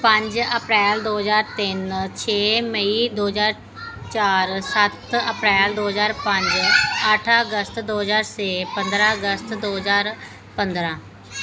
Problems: constant background noise